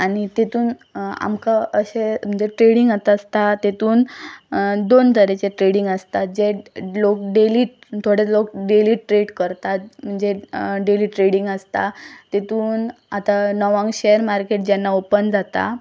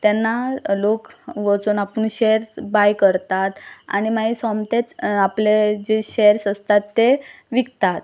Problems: constant background noise